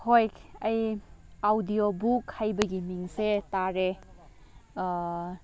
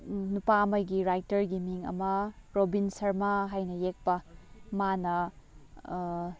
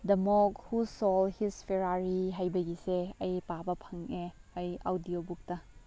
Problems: background sounds at intervals